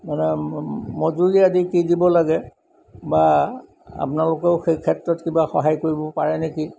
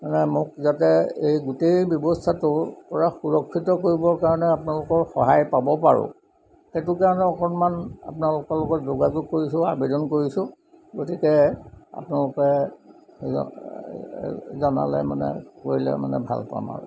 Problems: background sounds at intervals